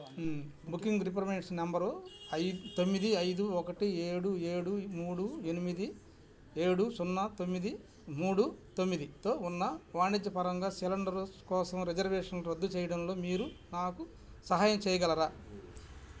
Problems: background sounds at intervals